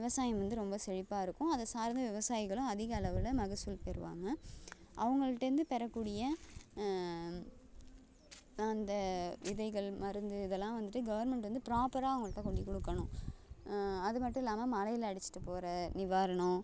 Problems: low volume